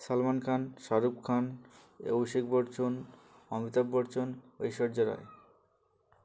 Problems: constant background noise, background conversations at intervals